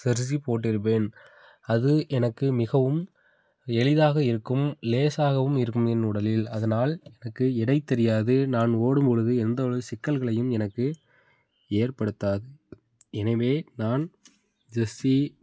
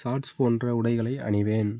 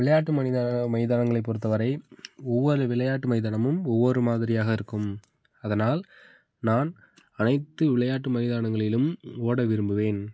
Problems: background sounds at intervals